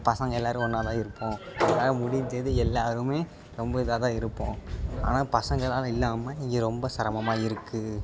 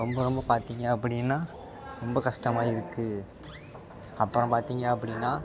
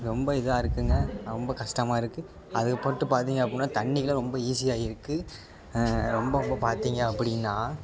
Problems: background sounds at intervals